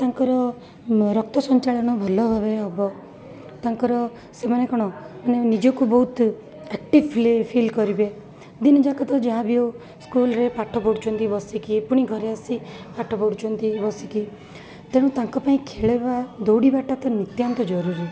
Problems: constant background noise, continuous background conversations